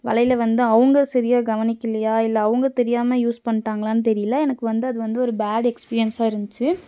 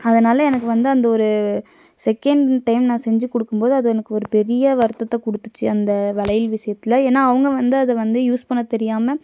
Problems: none marked